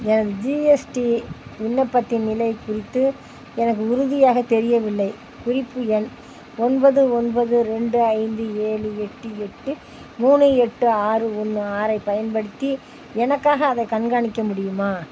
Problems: constant background noise